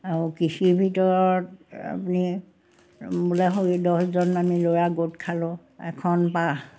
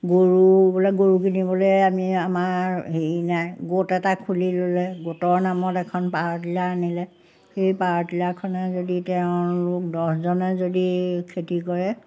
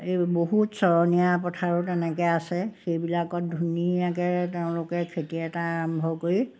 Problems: background sounds at intervals